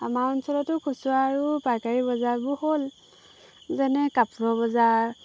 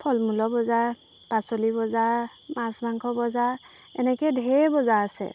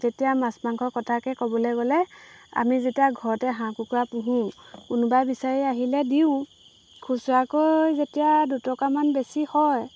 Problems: background sounds at intervals